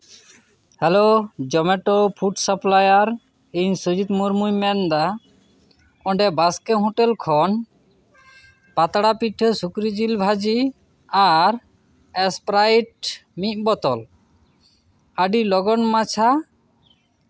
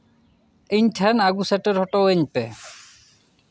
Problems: none marked